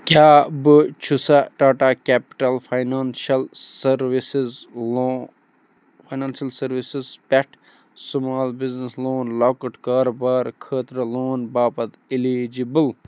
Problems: none marked